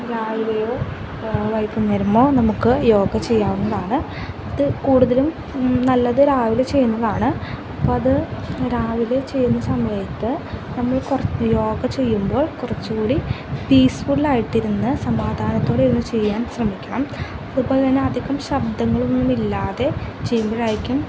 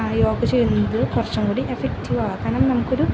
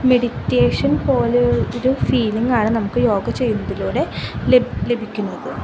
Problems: constant background noise